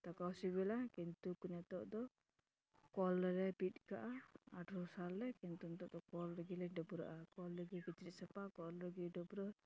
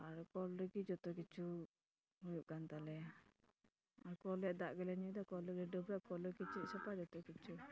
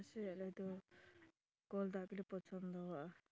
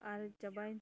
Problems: constant background noise